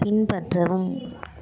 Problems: continuous background conversations